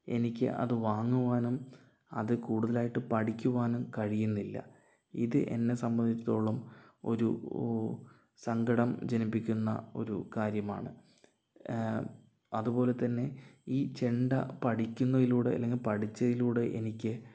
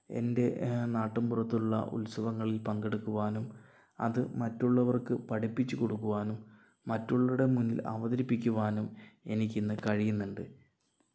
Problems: low volume